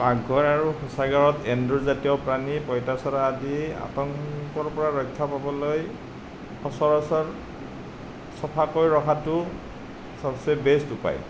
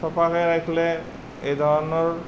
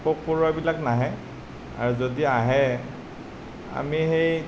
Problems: none marked